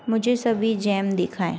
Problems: constant background noise